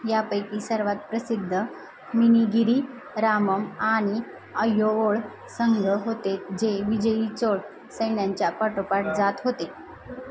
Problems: none marked